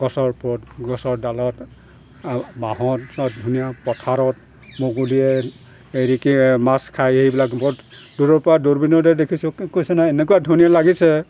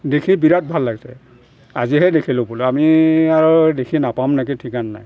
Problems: constant background noise